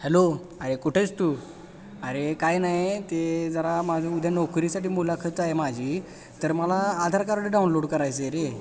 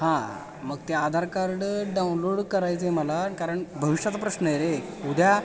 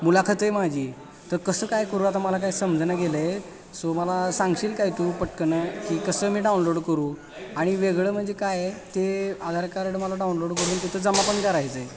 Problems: constant background noise, background conversations at intervals